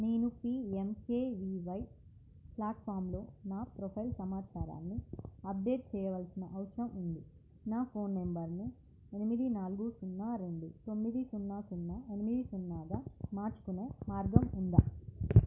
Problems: low volume